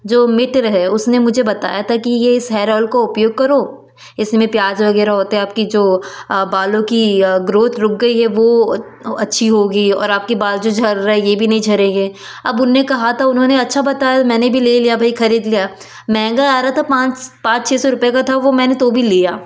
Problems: none marked